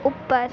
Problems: constant background noise